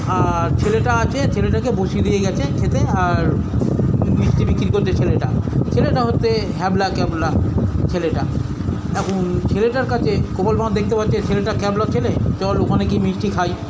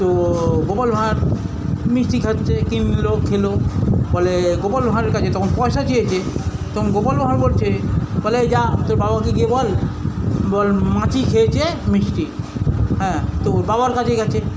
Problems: constant background noise, continuous background conversations